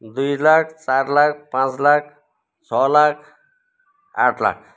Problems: none marked